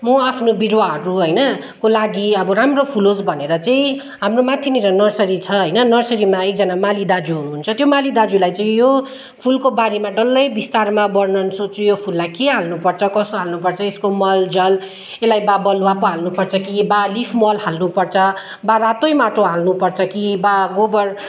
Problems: none marked